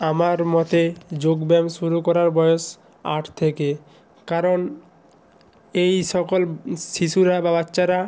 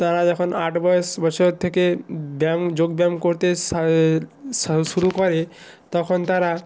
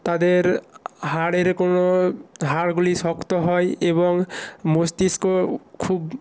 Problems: none marked